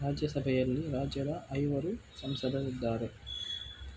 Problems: constant background noise